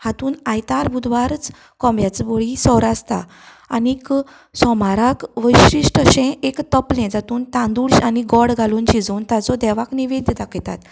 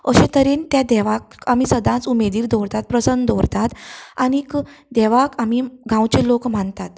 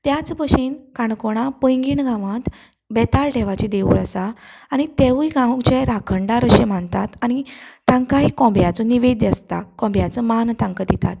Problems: constant background noise